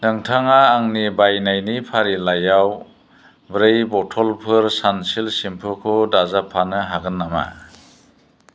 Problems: constant background noise